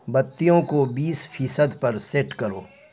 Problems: constant background noise